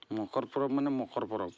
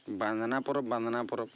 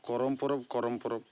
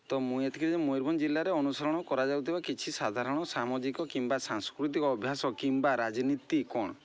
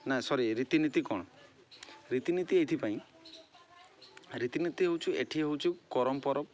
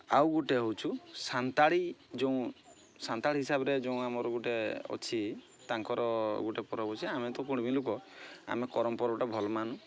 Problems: constant background noise